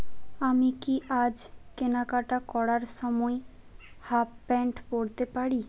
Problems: constant background noise